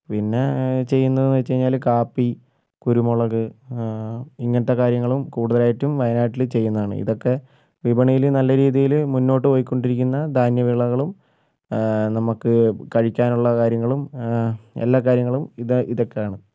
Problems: none marked